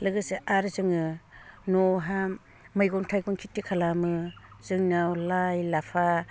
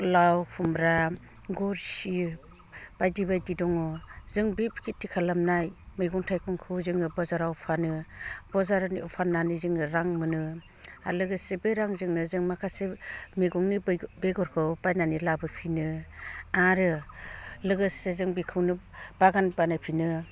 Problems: low volume